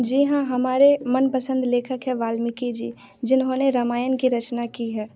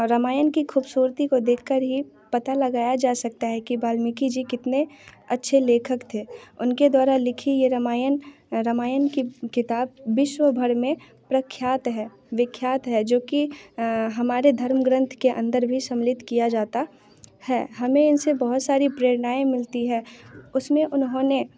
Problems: background sounds at intervals, background conversations at intervals